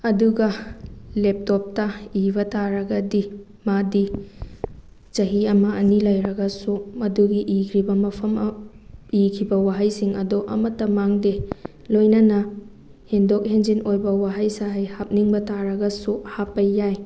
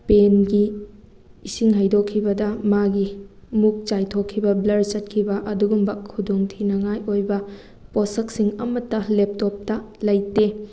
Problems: none marked